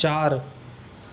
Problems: constant background noise